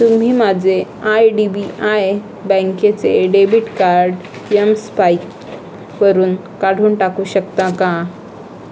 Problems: constant background noise